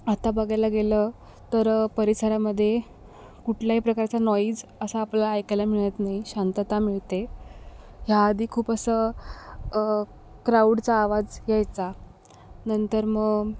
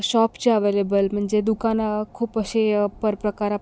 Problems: background sounds at intervals